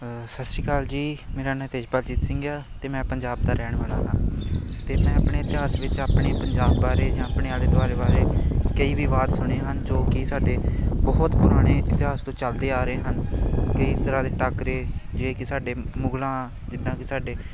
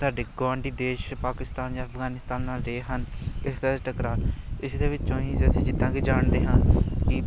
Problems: constant background noise